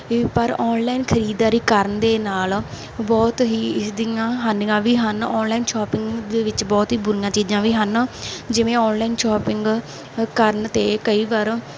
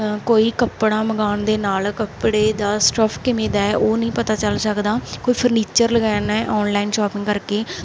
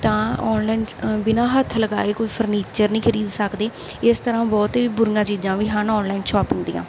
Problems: background sounds at intervals